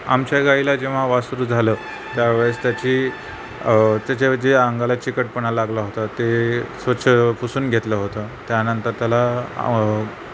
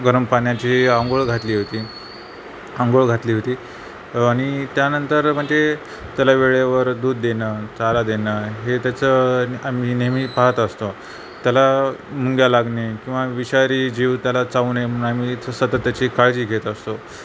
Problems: none marked